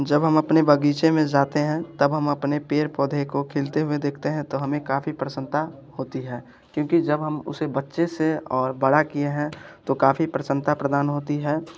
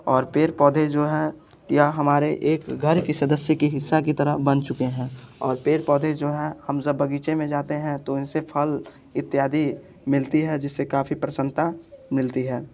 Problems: constant background noise